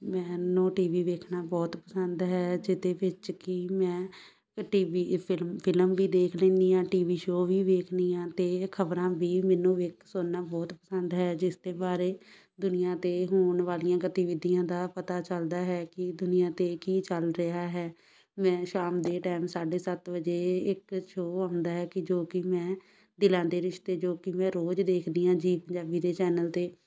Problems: background sounds at intervals, background conversations at intervals